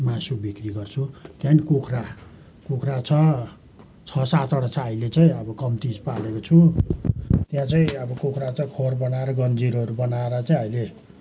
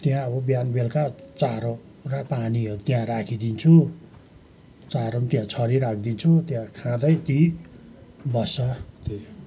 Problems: background sounds at intervals